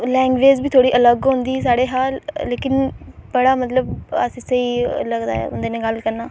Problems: none marked